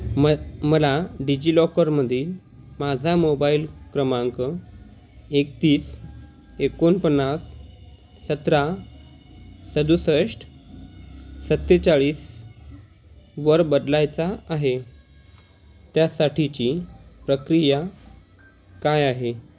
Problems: none marked